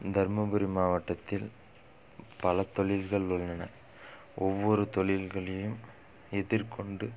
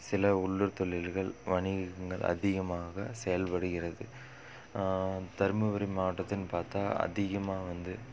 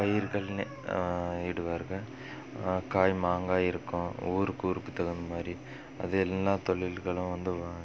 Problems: background sounds at intervals